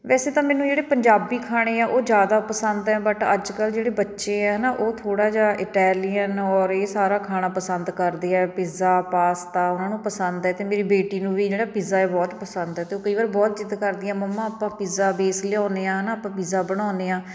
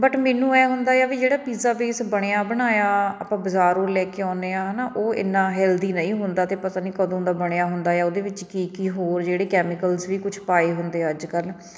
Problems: none marked